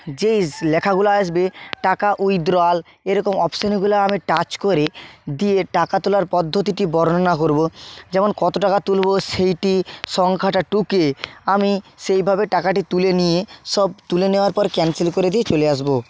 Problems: none marked